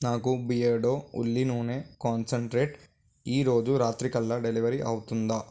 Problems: none marked